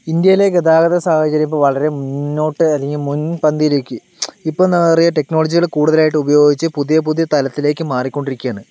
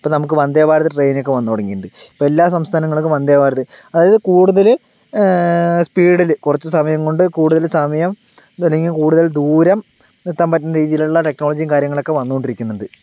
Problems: none marked